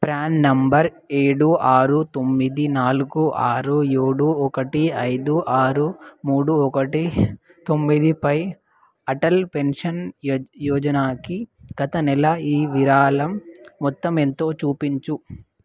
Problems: none marked